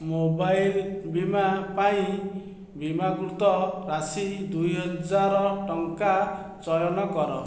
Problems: none marked